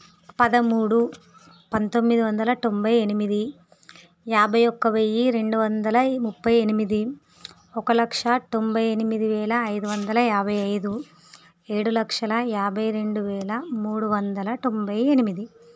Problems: none marked